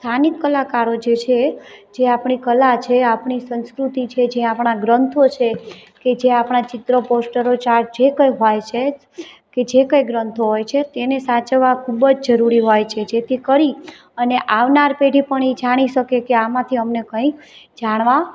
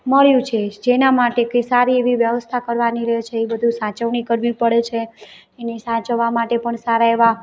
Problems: background sounds at intervals, background conversations at intervals